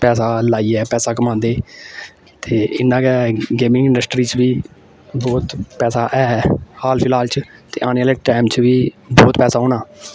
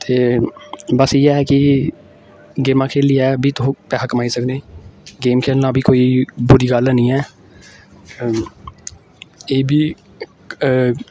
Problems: constant background noise